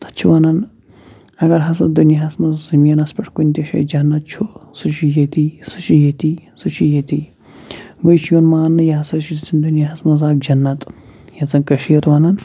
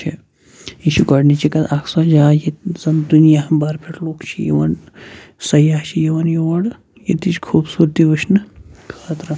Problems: constant background noise